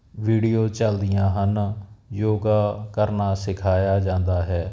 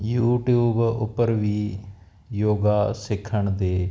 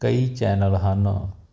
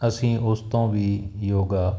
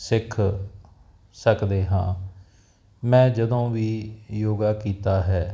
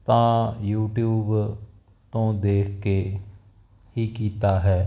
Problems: none marked